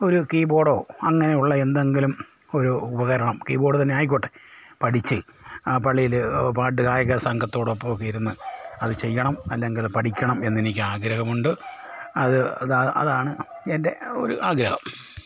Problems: background sounds at intervals